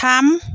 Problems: none marked